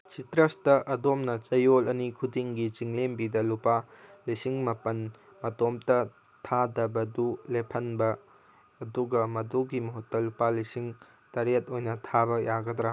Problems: none marked